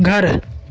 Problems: constant background noise